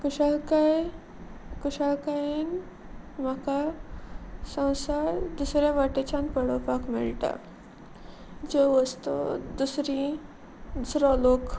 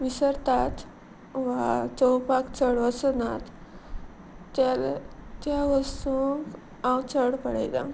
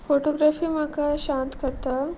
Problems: none marked